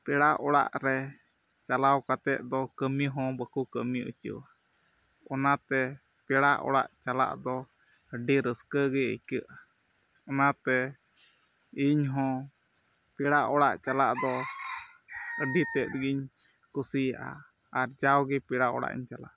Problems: background sounds at intervals, low volume